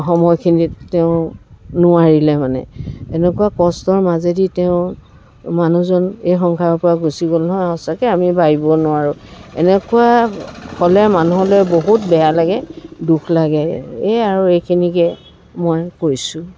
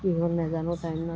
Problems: background sounds at intervals, background conversations at intervals